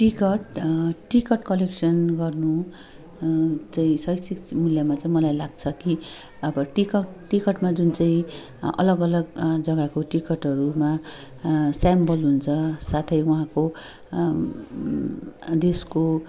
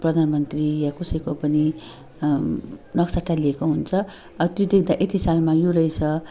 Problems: continuous background conversations